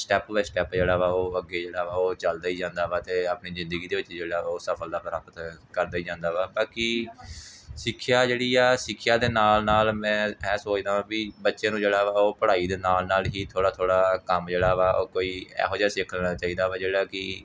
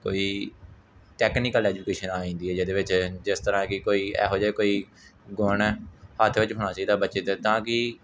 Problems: none marked